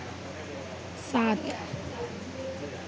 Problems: constant background noise, low volume